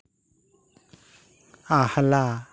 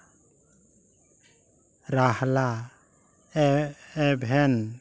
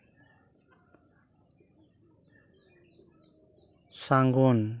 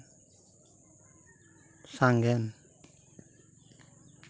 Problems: constant background noise